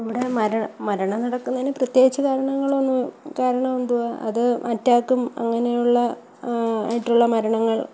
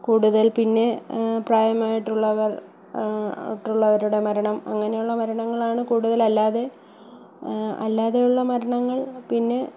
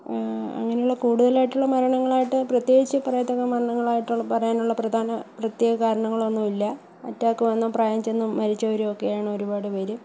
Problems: background sounds at intervals, low volume